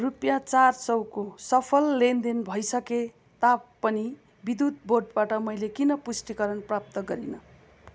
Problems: constant background noise